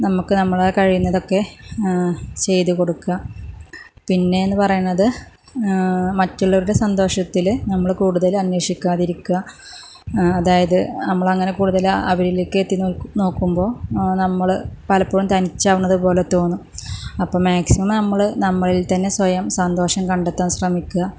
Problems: none marked